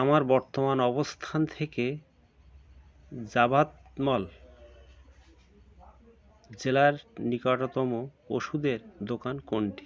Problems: constant background noise